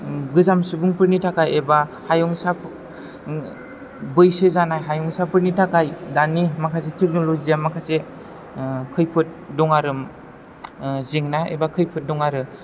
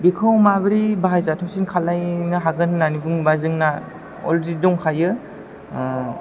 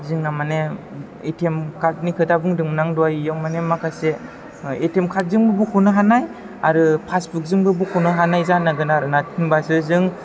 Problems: low volume